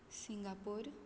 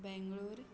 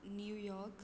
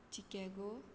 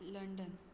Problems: constant background noise